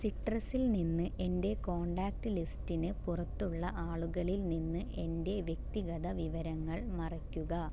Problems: none marked